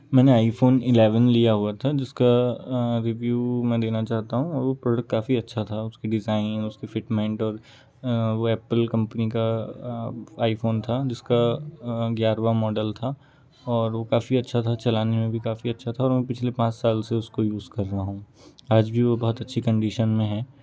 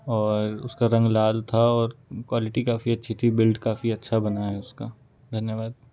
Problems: continuous background conversations